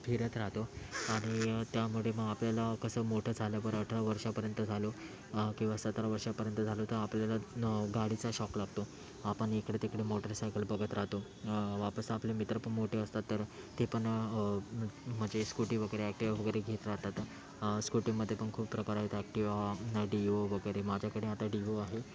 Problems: constant background noise, background conversations at intervals